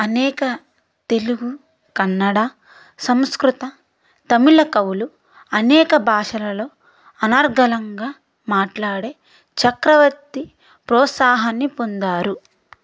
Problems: none marked